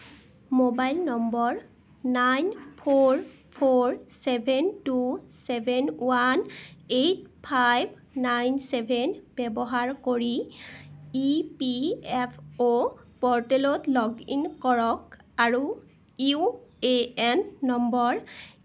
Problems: none marked